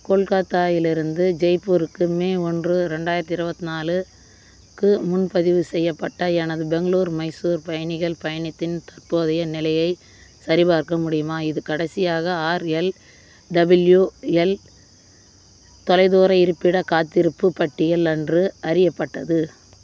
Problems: constant background noise